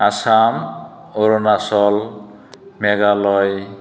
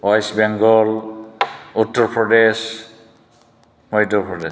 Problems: none marked